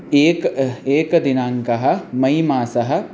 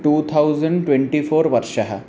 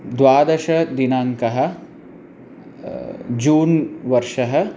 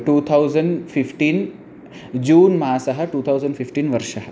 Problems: none marked